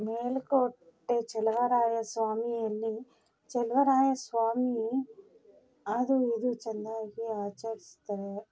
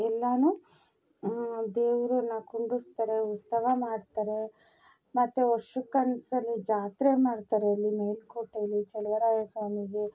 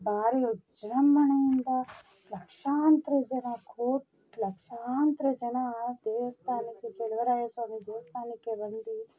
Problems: background sounds at intervals